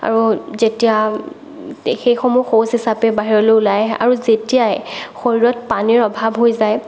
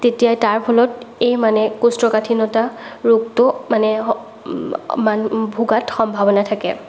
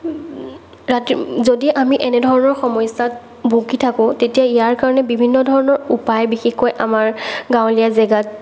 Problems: none marked